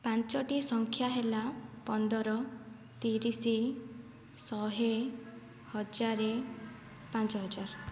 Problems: low volume